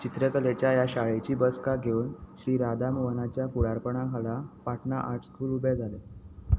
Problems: none marked